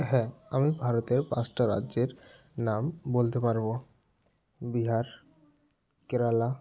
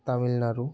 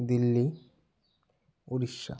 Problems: background sounds at intervals, background conversations at intervals